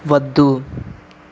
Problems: constant background noise